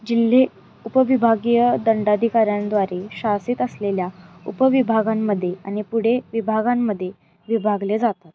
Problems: none marked